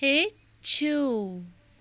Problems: background sounds at intervals